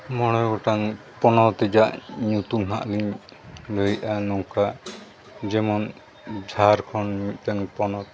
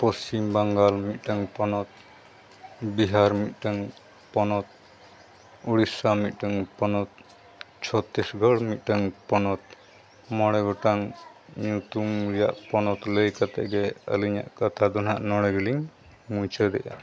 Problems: background sounds at intervals